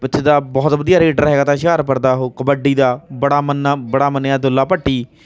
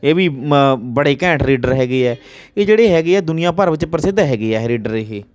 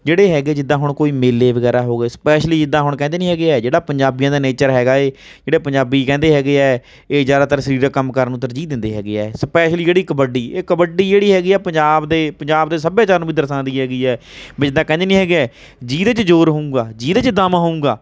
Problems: none marked